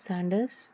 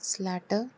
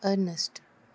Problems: none marked